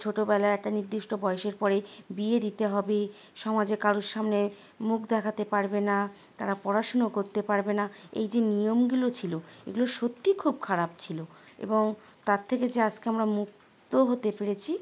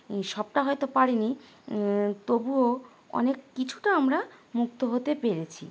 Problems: constant background noise